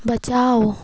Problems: constant background noise